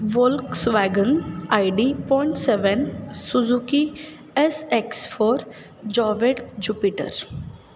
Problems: none marked